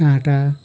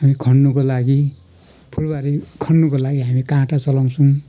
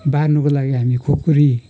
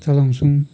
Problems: background sounds at intervals